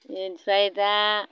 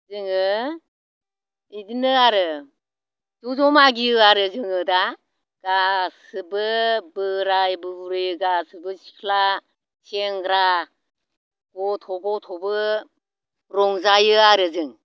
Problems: none marked